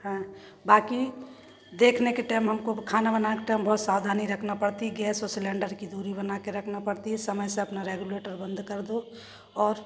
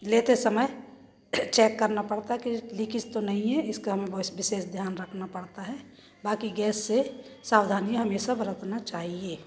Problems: constant background noise, background conversations at intervals